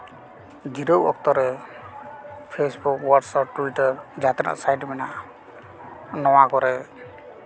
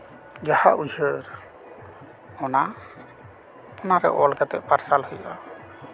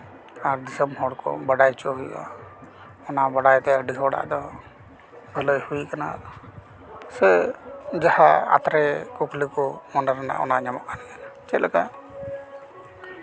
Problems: continuous background conversations